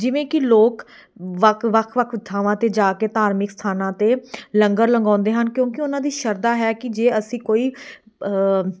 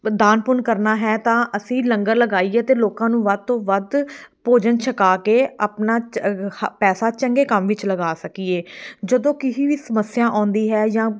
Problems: none marked